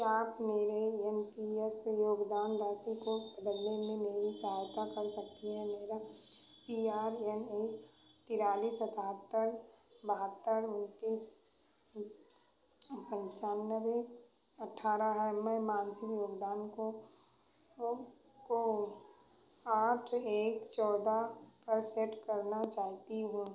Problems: none marked